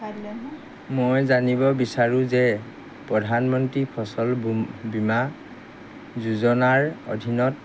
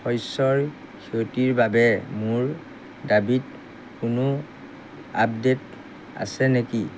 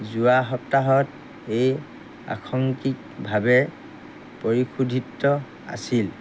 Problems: none marked